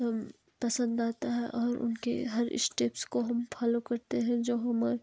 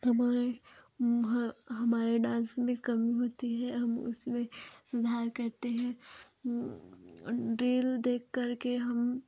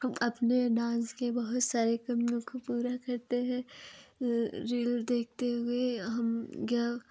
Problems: none marked